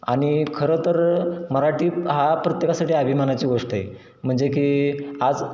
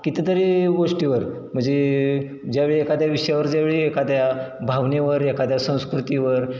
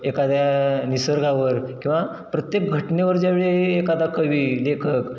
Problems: none marked